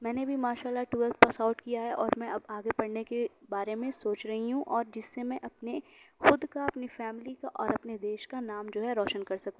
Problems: constant background noise